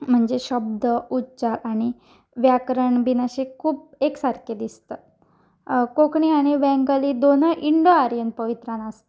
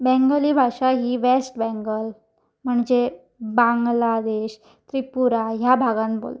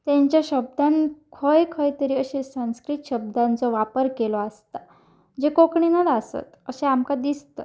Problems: background sounds at intervals